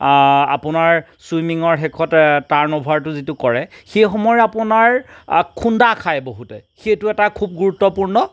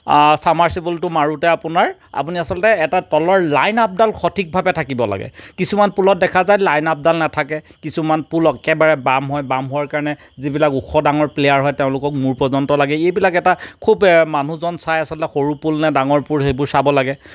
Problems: none marked